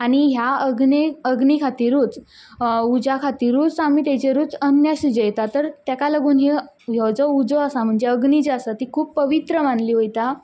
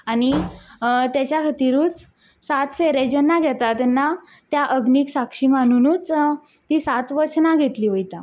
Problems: background sounds at intervals